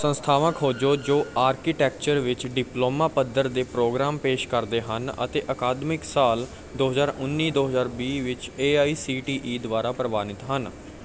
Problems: none marked